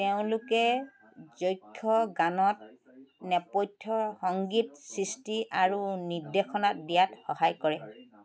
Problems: constant background noise